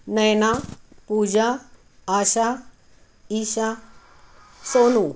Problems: none marked